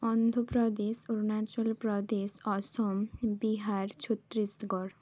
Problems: none marked